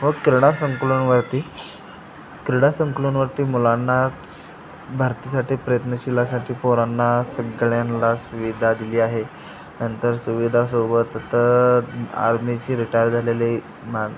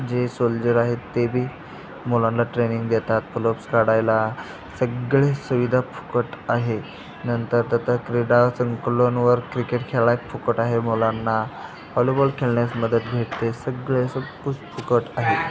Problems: constant background noise, continuous background conversations